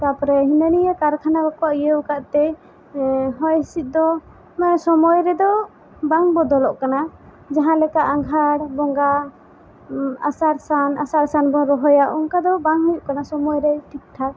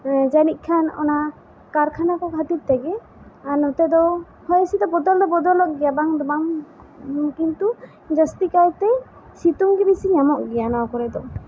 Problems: constant background noise